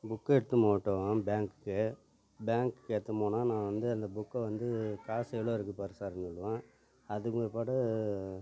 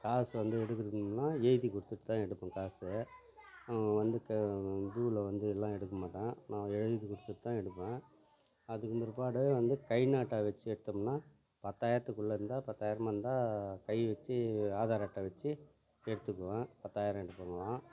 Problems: continuous background conversations